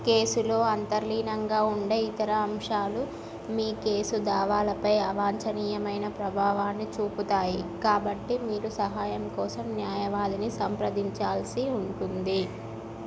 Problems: none marked